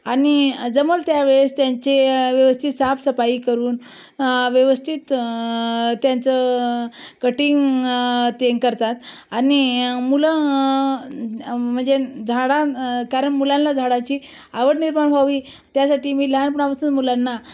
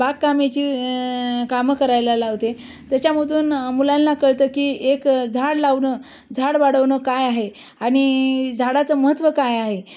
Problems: none marked